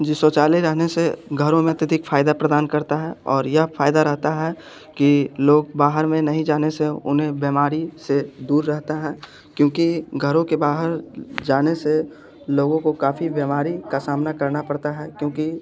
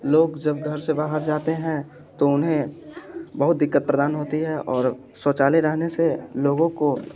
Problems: constant background noise